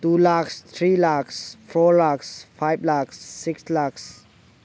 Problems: background sounds at intervals